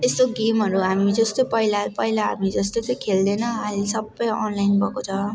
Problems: continuous background conversations